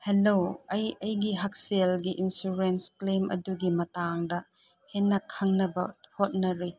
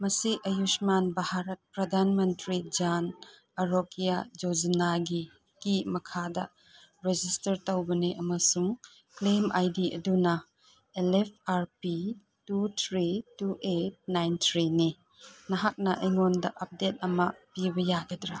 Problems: none marked